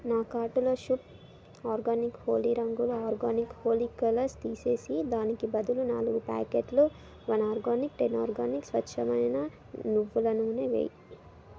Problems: constant background noise